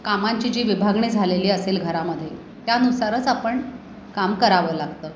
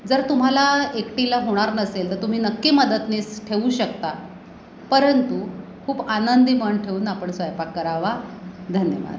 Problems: none marked